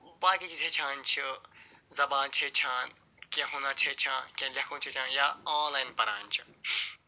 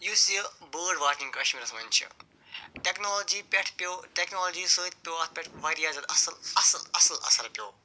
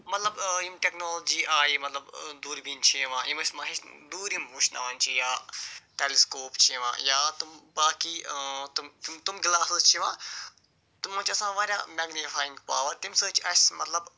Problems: none marked